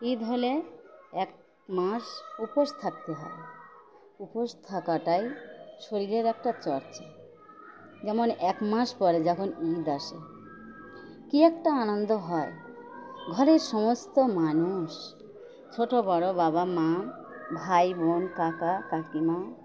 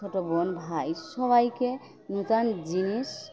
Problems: constant background noise